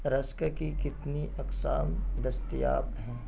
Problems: constant background noise, low volume